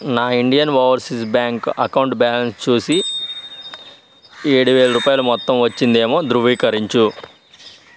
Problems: none marked